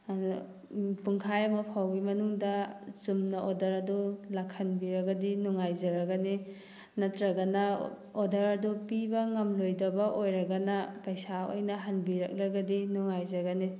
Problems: none marked